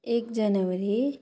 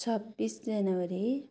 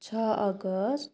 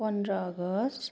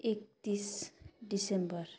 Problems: none marked